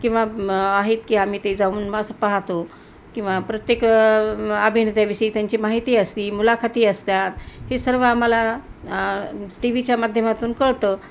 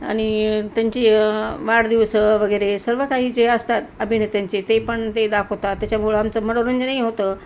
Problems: constant background noise